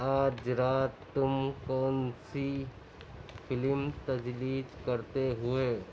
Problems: none marked